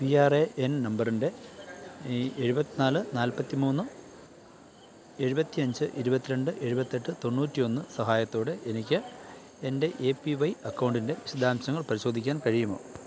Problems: none marked